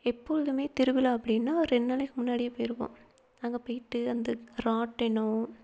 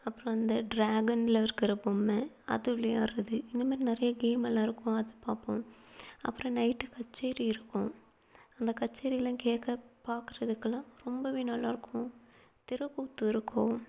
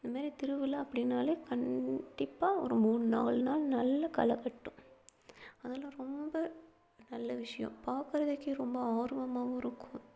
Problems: low volume